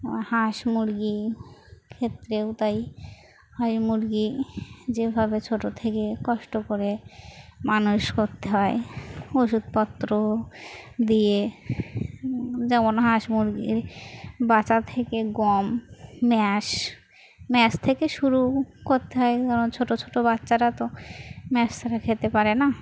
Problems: constant background noise, continuous background conversations